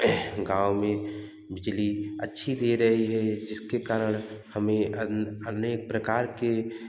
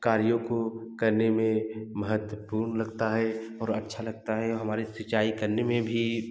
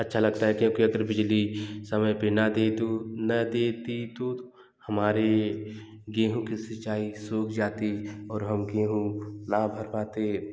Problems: background sounds at intervals, background conversations at intervals, echo